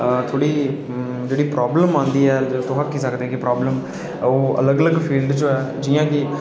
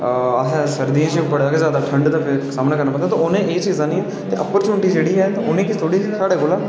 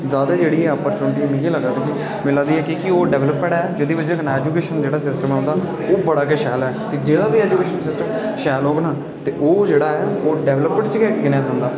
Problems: constant background noise